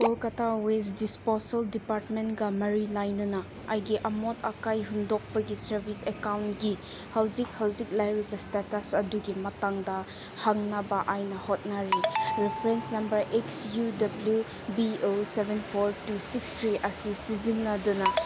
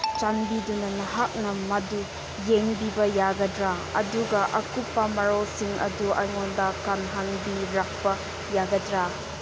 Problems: constant background noise